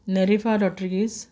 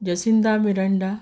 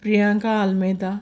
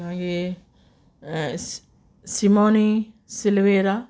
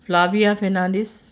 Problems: constant background noise